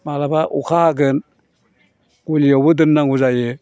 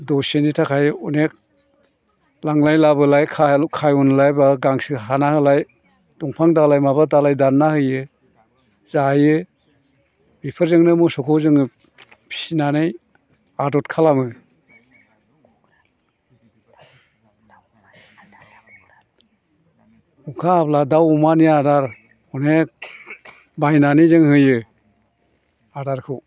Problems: background conversations at intervals